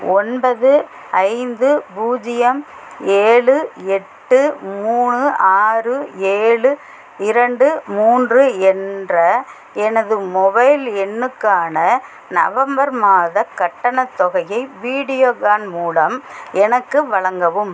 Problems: constant background noise